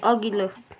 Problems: continuous background conversations